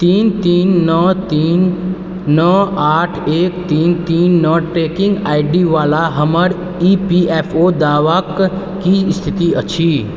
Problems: constant background noise